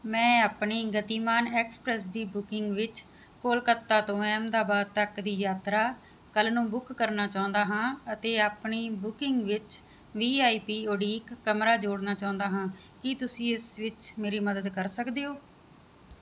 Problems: background sounds at intervals